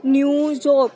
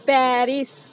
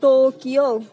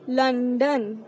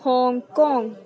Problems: none marked